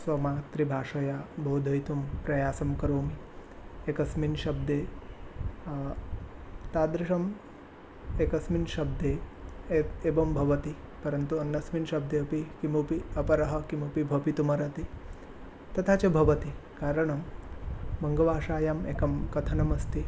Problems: none marked